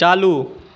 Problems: none marked